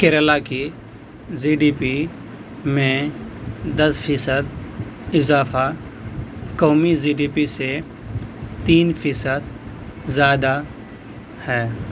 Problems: constant background noise